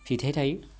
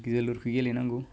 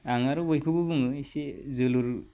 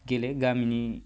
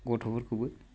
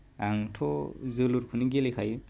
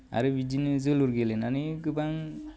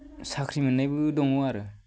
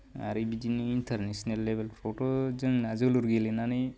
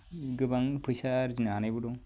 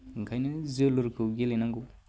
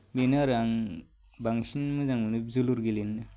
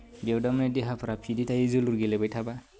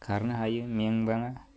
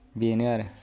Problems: none marked